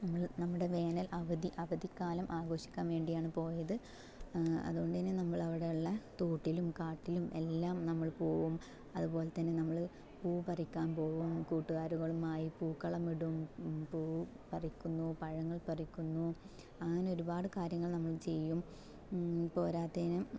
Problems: low volume